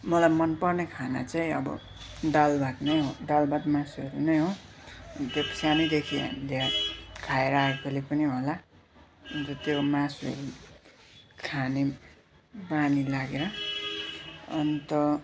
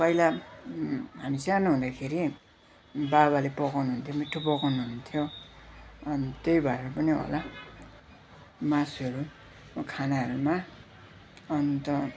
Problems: constant background noise